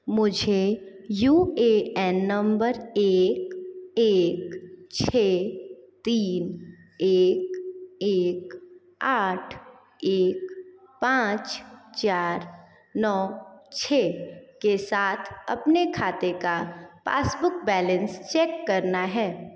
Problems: none marked